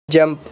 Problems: none marked